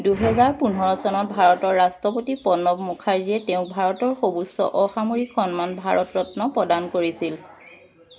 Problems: constant background noise